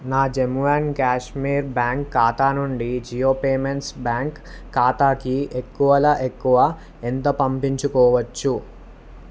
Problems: none marked